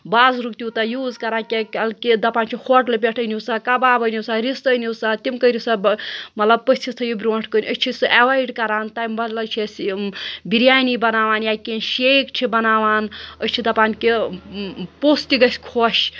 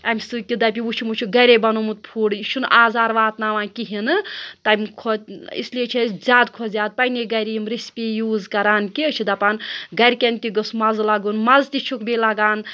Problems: none marked